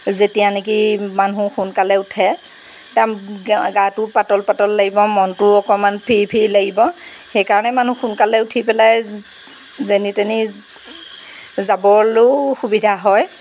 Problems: background sounds at intervals